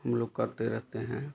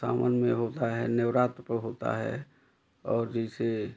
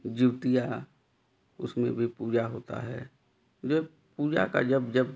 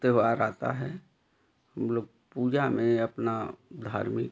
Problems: none marked